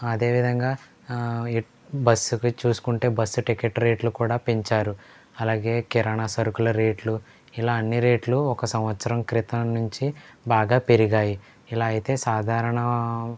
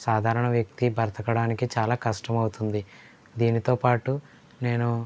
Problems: low volume